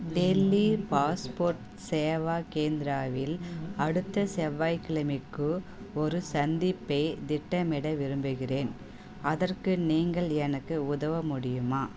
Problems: background conversations at intervals